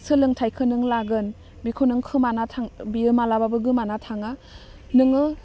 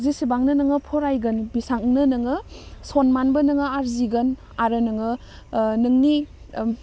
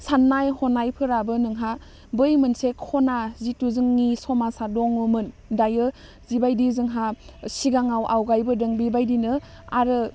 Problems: none marked